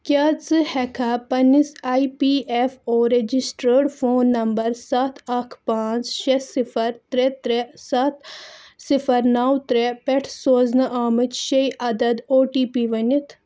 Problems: none marked